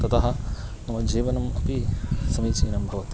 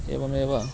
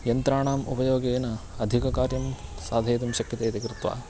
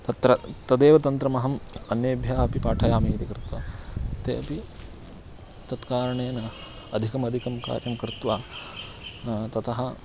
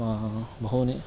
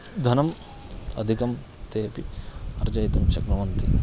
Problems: constant background noise, continuous background conversations